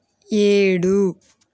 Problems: none marked